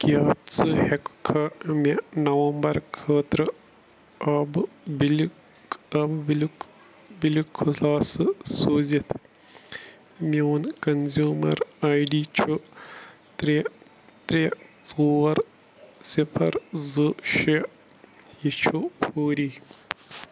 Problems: none marked